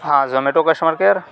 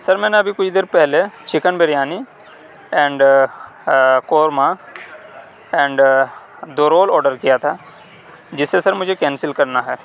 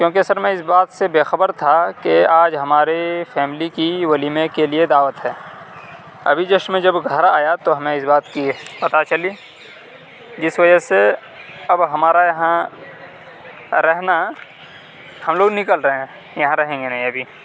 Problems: background sounds at intervals